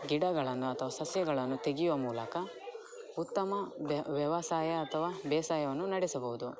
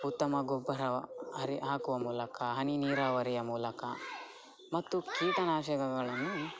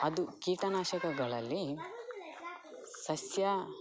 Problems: background sounds at intervals, background conversations at intervals